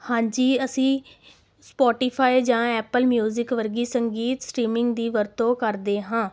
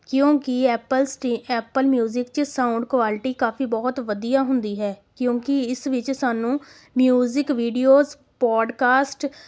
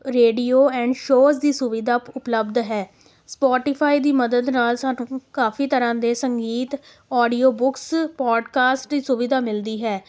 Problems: none marked